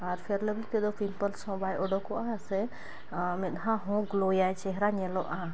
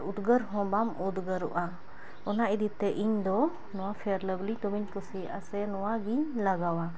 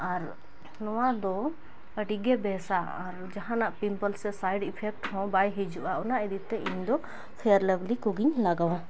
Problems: background sounds at intervals